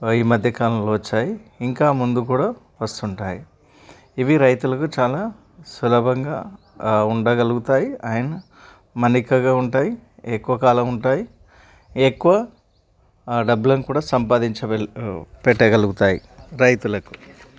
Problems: none marked